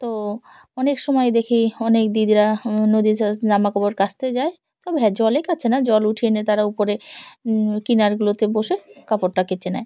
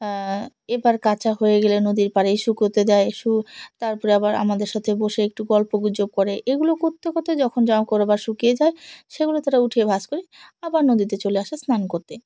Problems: background sounds at intervals